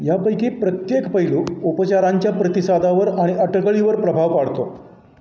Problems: none marked